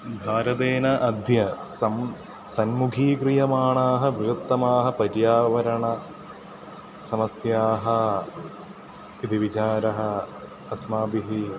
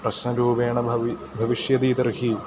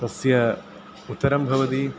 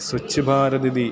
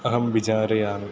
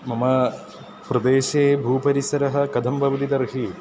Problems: constant background noise